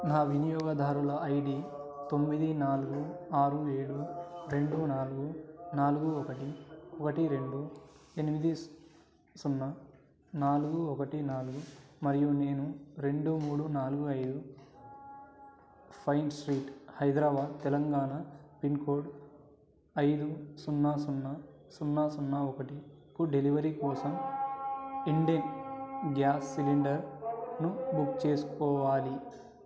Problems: background conversations at intervals